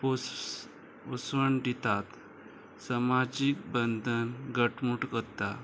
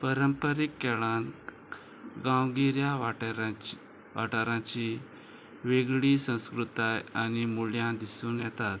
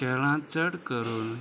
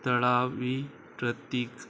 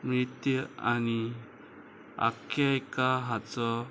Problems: constant background noise